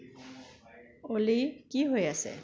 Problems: constant background noise